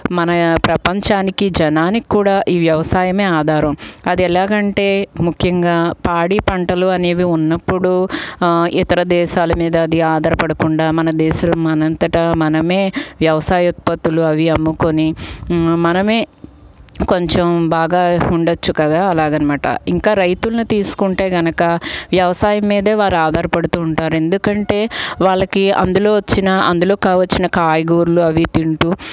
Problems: background sounds at intervals